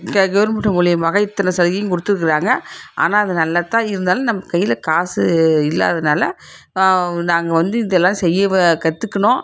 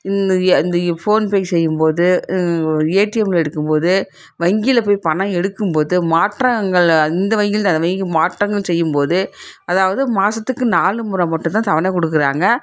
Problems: background sounds at intervals